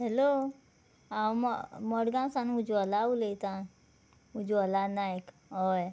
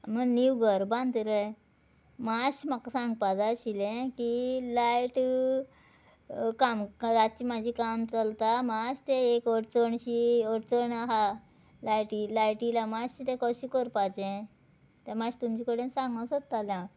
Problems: none marked